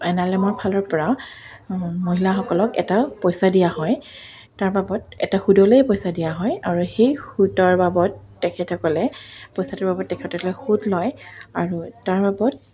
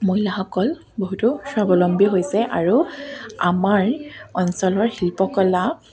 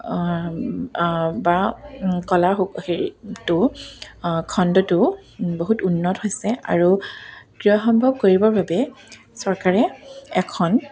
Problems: background sounds at intervals